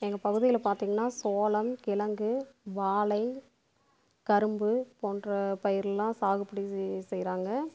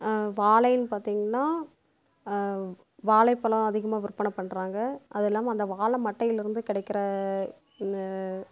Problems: constant background noise